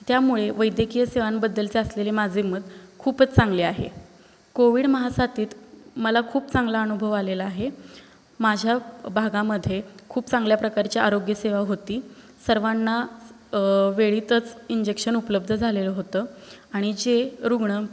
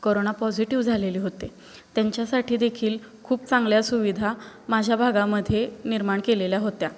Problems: constant background noise